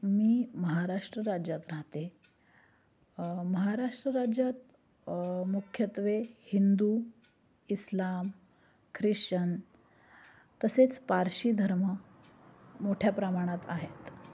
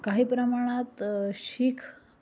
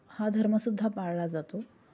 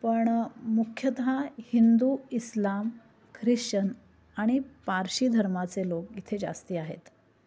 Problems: background sounds at intervals